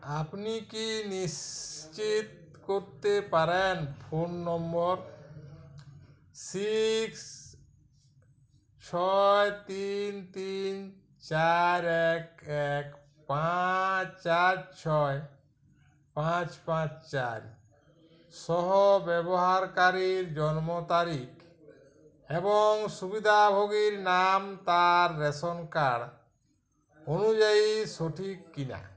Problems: background conversations at intervals